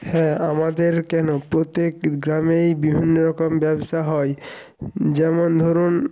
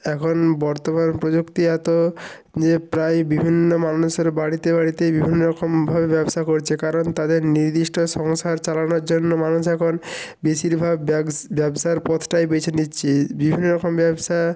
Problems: background sounds at intervals